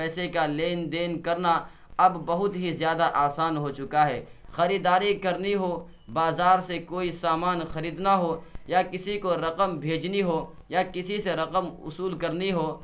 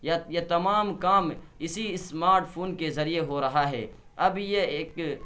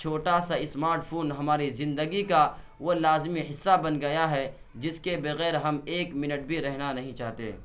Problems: constant background noise